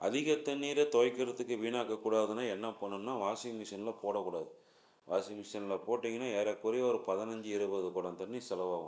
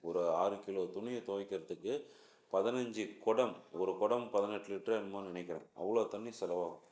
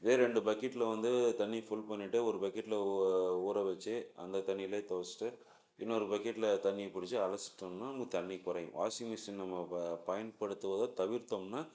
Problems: low volume